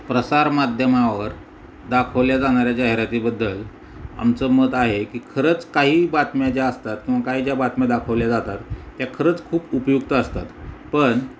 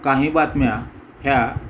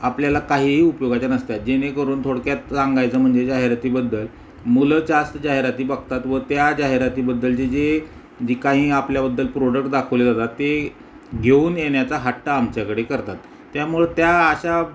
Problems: background sounds at intervals